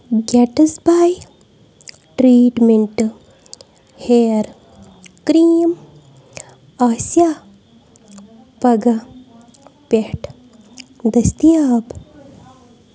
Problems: constant background noise